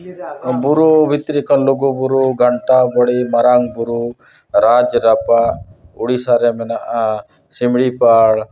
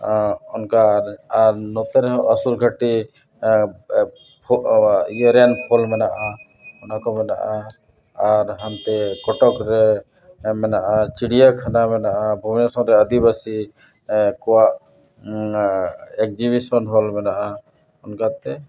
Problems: constant background noise, background conversations at intervals